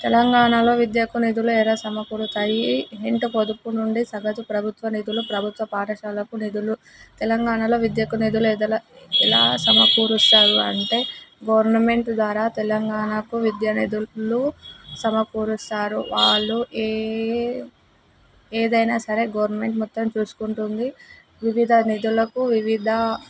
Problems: constant background noise